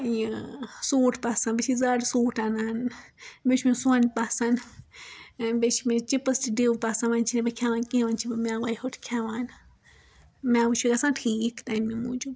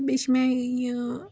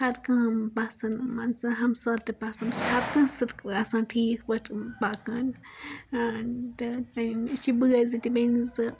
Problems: background sounds at intervals